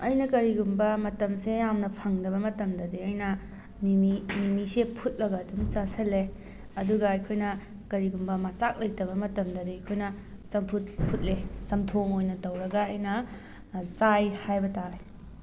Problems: background sounds at intervals